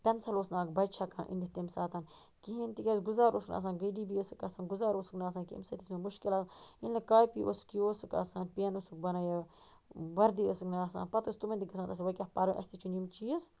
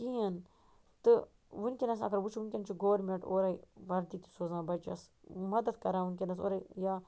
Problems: none marked